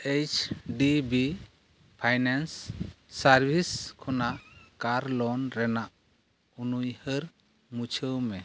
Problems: none marked